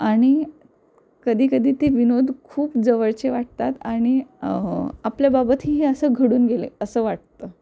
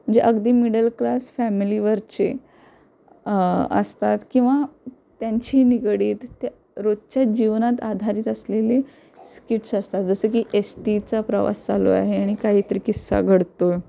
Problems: constant background noise